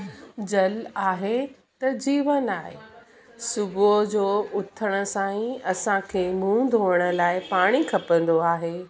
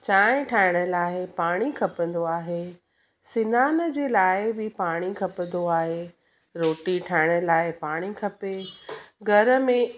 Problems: background sounds at intervals